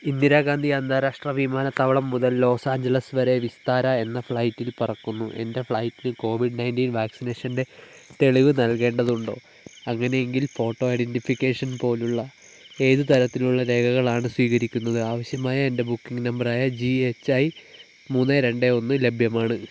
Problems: none marked